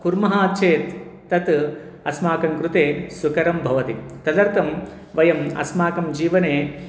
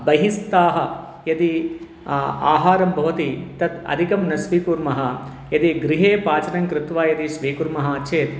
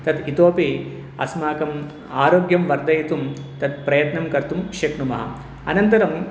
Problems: background sounds at intervals